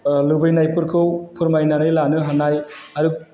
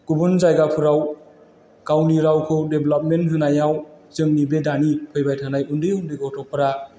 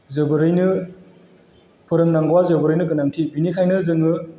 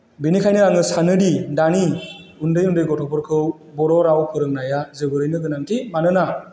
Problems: none marked